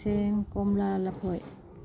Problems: low volume